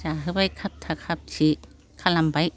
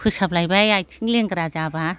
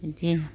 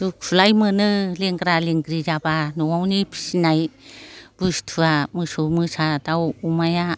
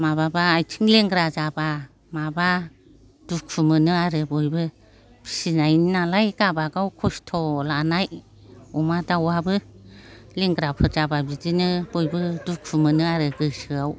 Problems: constant background noise